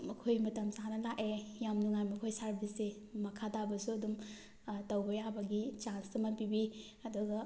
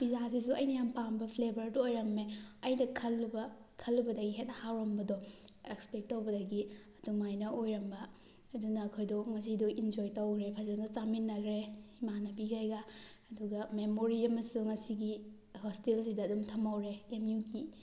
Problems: background sounds at intervals